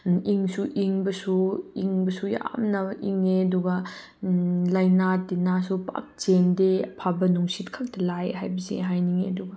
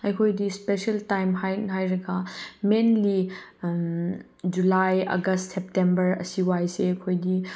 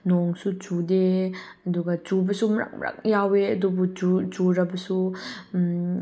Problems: none marked